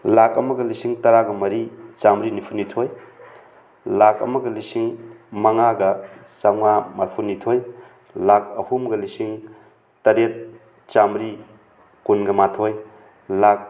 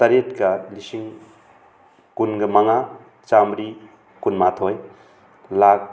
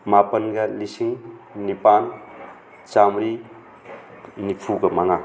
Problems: constant background noise